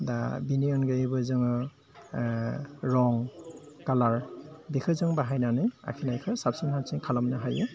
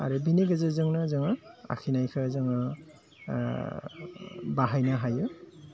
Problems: low volume